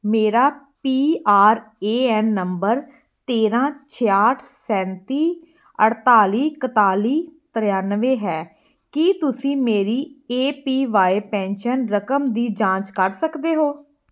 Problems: background sounds at intervals